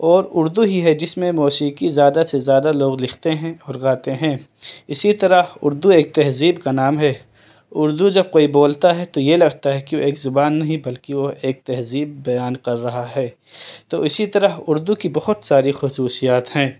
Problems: none marked